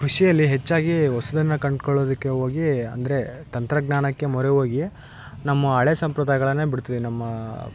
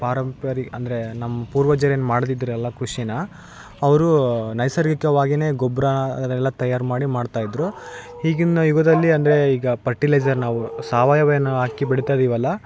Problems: none marked